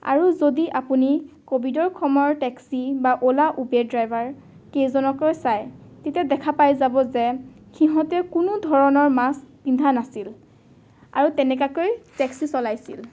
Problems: none marked